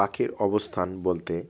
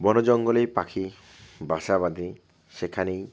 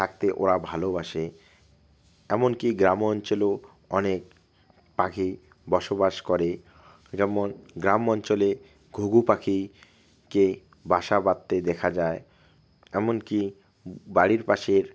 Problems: none marked